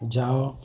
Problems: constant background noise, continuous background conversations